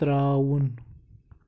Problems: none marked